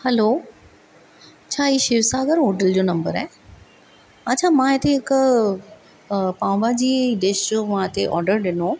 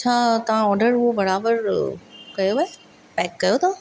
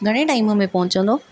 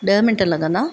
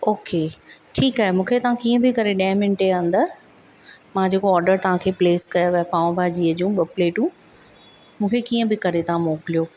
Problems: none marked